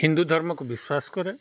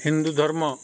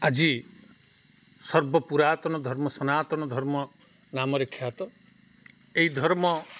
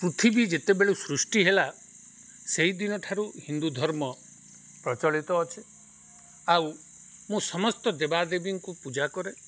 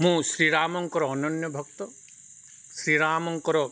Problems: none marked